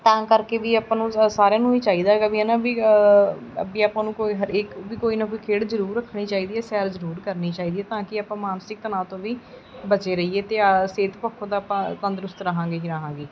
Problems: constant background noise